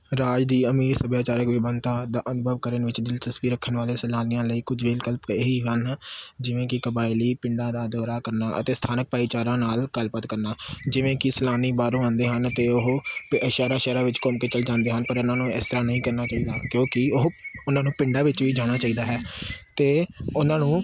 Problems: constant background noise